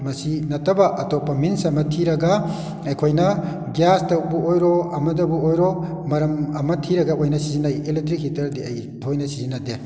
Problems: echo